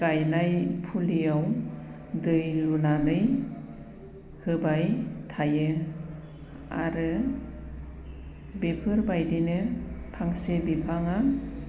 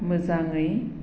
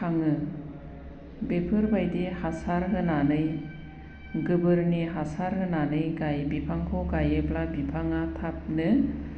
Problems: constant background noise